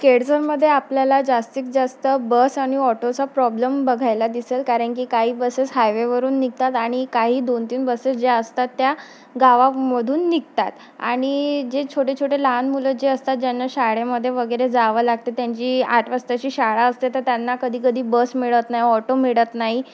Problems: constant background noise